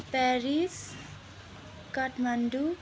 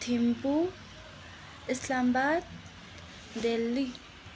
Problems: constant background noise